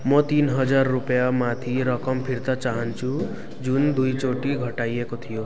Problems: background sounds at intervals